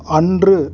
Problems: background conversations at intervals